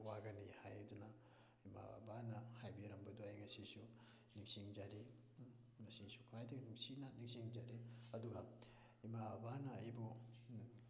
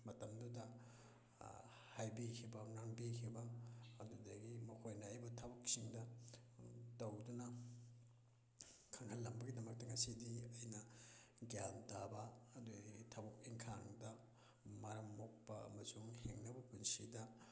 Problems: background sounds at intervals